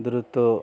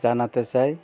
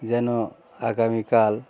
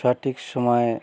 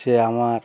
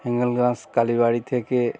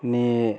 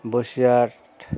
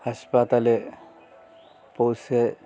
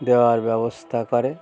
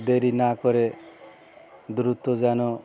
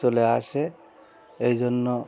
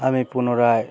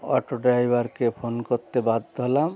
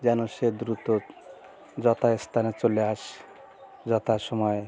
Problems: constant background noise